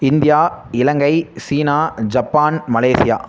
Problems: constant background noise